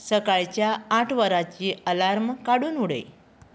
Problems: constant background noise